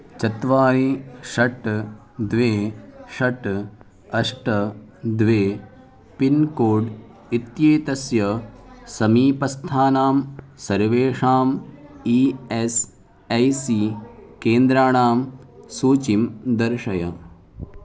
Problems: continuous background conversations